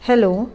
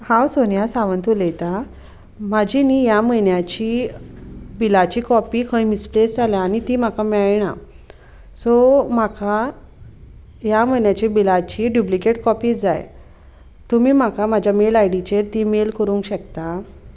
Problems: none marked